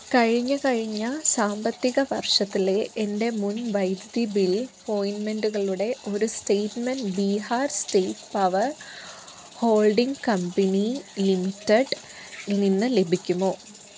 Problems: constant background noise